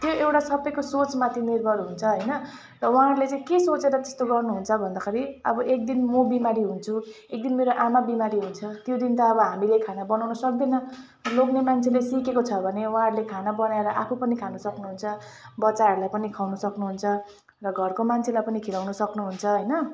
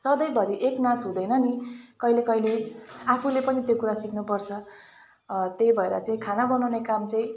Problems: constant background noise, continuous background conversations